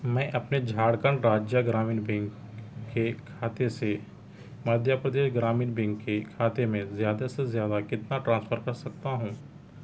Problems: none marked